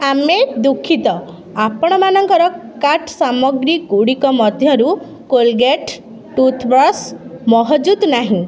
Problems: constant background noise